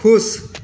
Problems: none marked